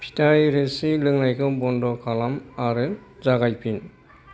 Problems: constant background noise